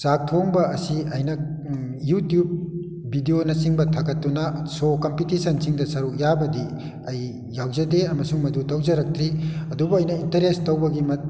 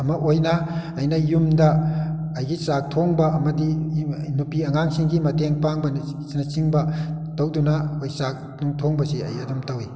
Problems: background sounds at intervals